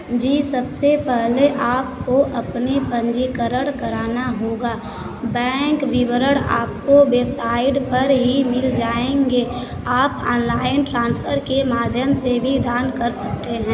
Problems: constant background noise